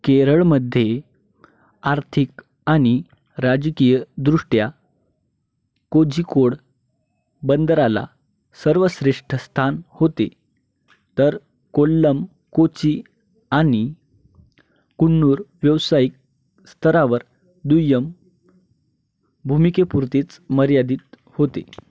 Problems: none marked